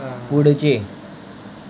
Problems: constant background noise, background conversations at intervals